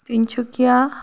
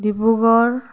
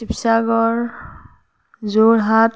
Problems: none marked